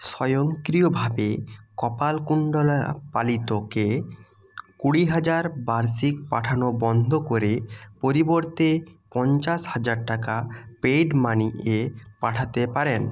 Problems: background sounds at intervals